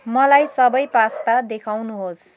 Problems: constant background noise